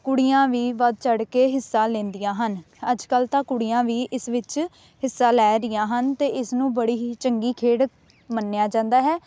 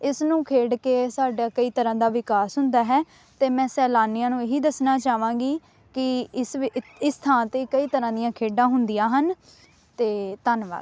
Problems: background sounds at intervals